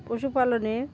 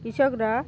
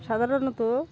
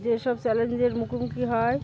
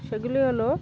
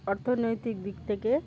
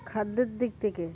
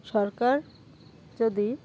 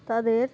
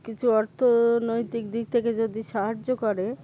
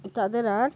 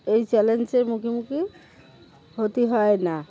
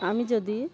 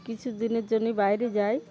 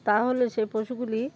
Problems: constant background noise, background conversations at intervals